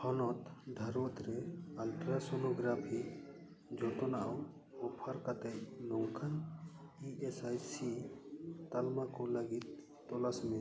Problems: echo